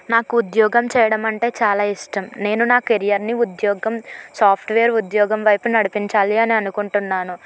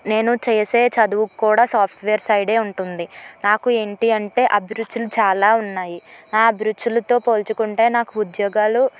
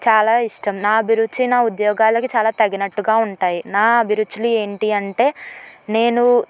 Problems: none marked